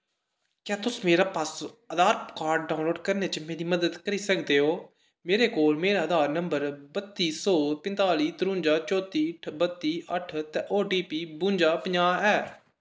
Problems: echo